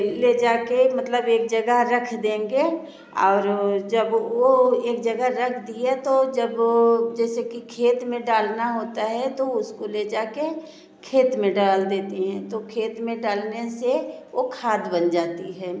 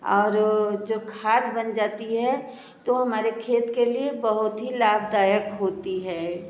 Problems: constant background noise